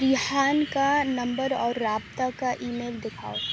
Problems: constant background noise